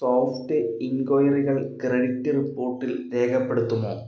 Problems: echo, low volume